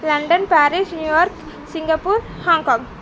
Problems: none marked